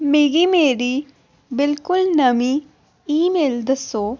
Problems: none marked